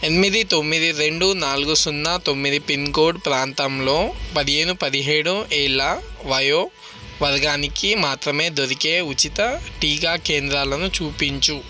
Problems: constant background noise